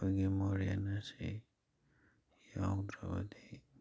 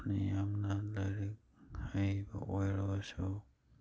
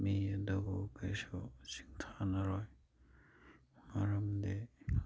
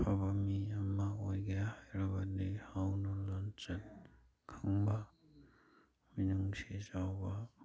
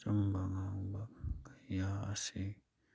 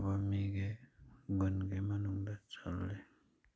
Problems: background sounds at intervals